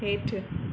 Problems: constant background noise